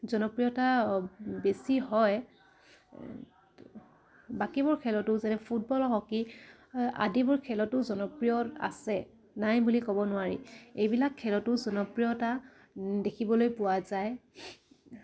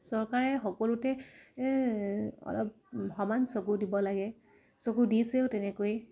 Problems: none marked